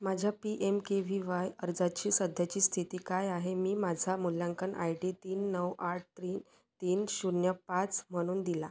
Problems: none marked